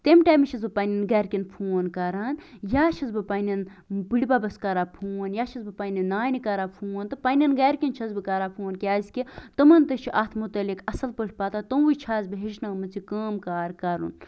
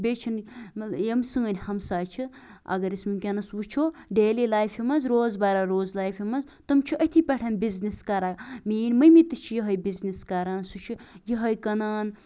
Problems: none marked